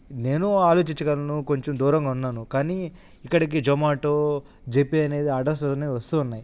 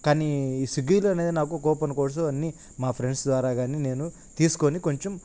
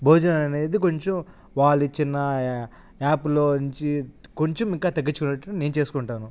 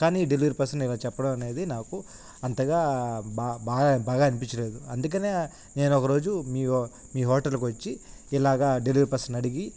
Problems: constant background noise